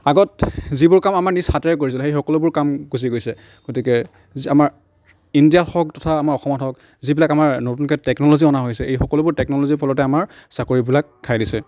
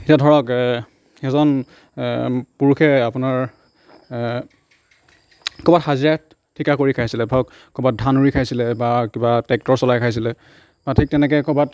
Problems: none marked